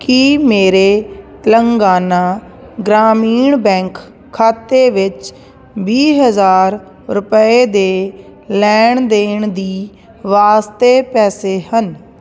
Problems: constant background noise